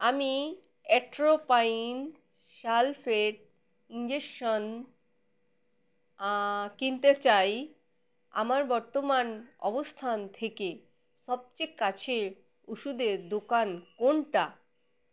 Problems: background sounds at intervals